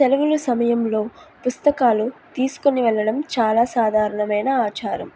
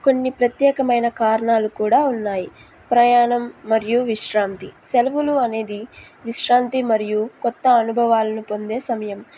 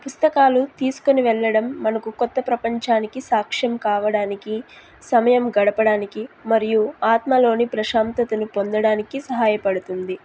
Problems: none marked